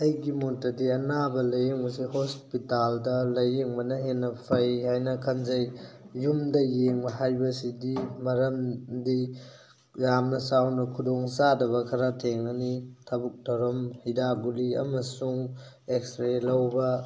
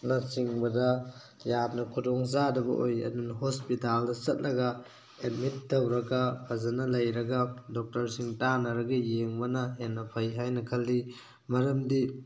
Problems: background sounds at intervals